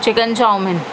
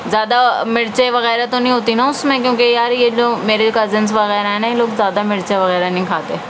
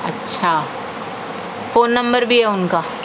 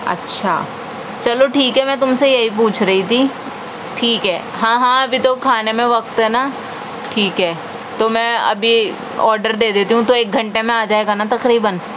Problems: constant background noise